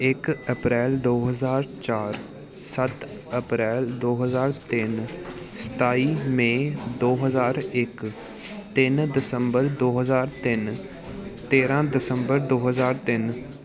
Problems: constant background noise